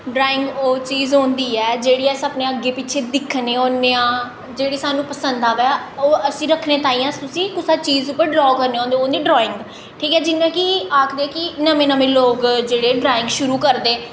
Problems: echo